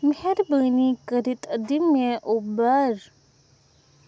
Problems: none marked